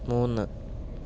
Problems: background sounds at intervals, low volume